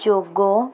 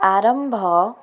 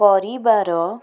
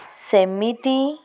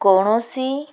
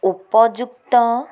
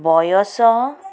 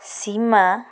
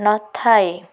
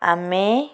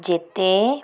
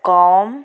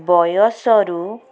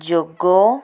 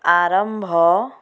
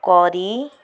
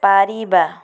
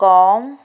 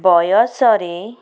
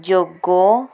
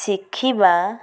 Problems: constant background noise